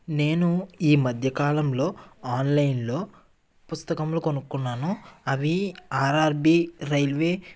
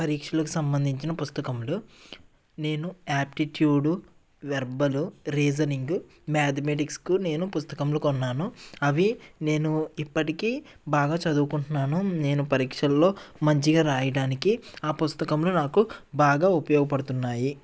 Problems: none marked